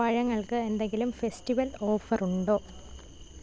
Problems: background sounds at intervals